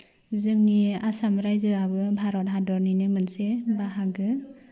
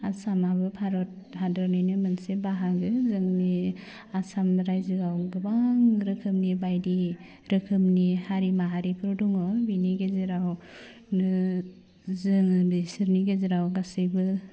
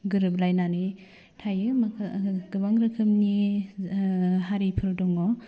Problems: low volume